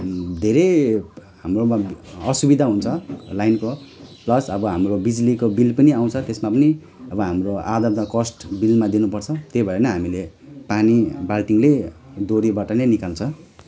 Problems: constant background noise